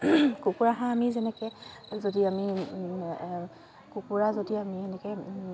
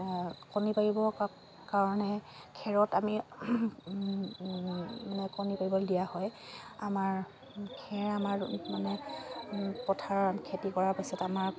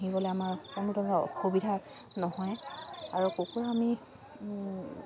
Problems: constant background noise, continuous background conversations